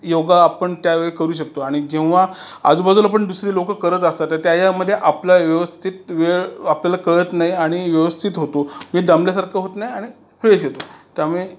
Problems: constant background noise